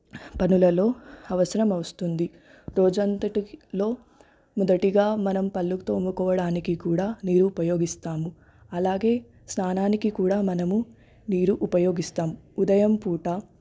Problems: constant background noise, background conversations at intervals